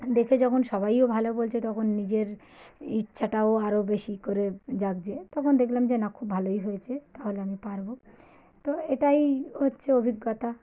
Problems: background sounds at intervals